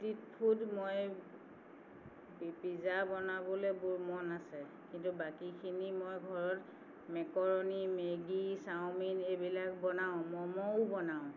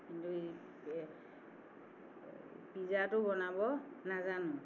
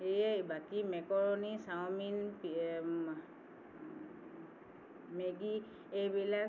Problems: none marked